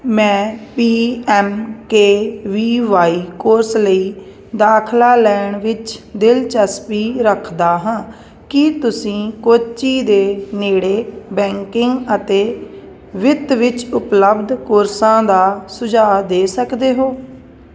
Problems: none marked